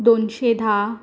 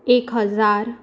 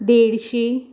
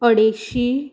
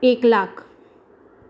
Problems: none marked